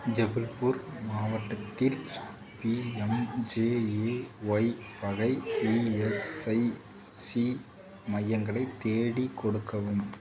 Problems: low volume